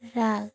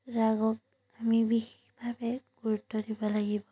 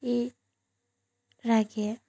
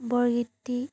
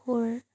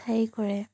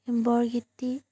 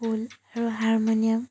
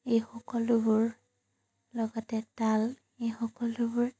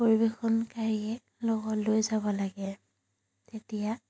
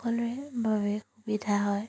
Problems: none marked